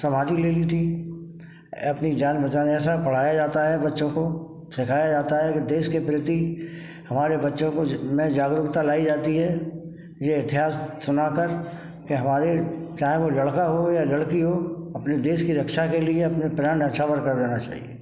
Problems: background sounds at intervals